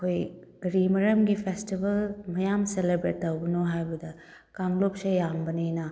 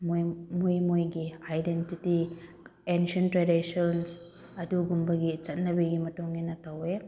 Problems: background sounds at intervals